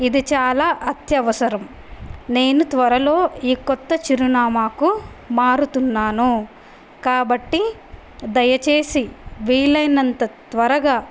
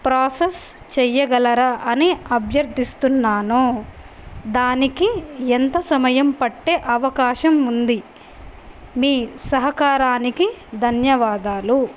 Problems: none marked